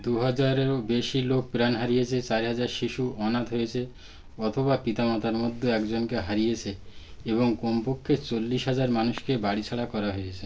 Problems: background sounds at intervals